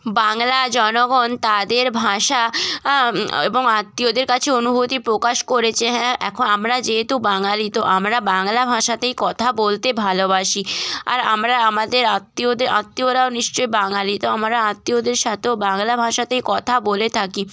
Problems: background sounds at intervals